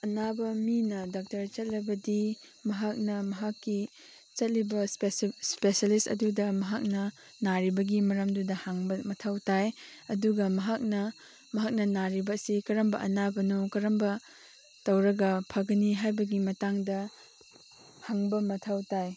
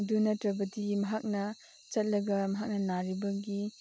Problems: constant background noise